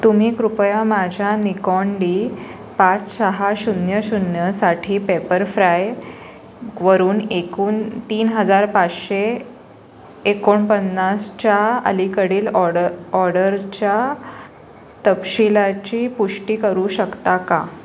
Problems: none marked